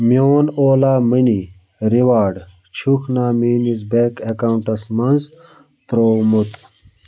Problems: background sounds at intervals